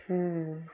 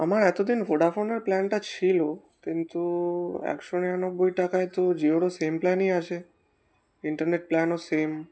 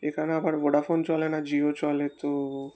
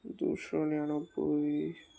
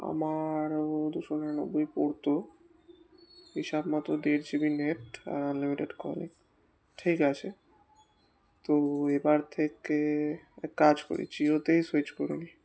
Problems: constant background noise, background conversations at intervals